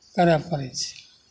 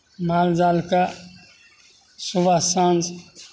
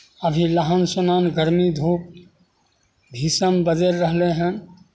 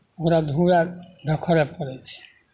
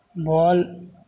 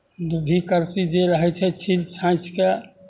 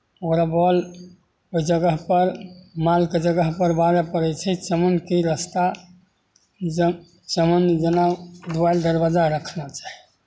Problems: none marked